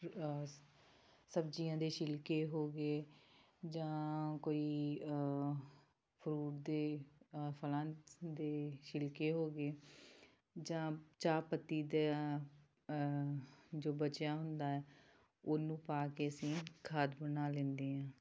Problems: background sounds at intervals